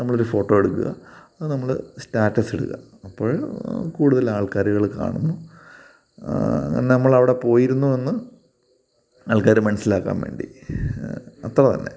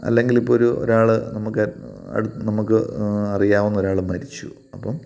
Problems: background sounds at intervals